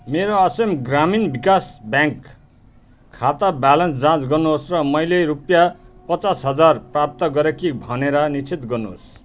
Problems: constant background noise